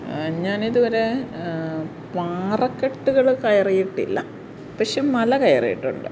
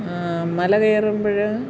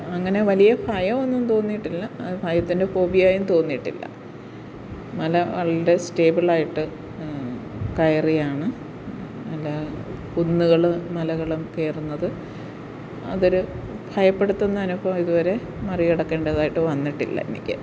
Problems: constant background noise